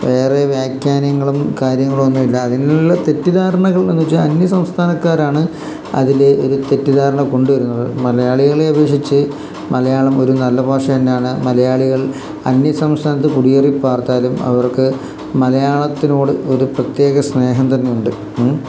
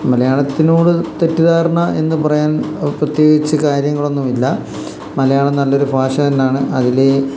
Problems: constant background noise